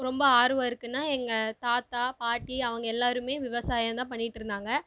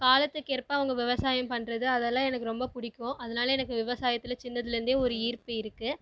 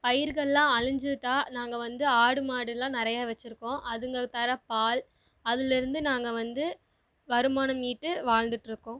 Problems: none marked